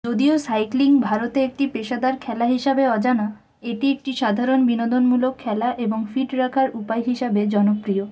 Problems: constant background noise